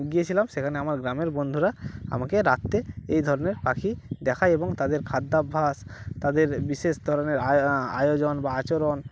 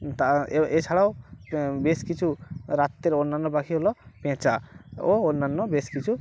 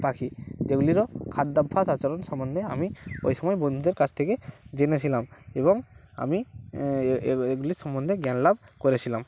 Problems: none marked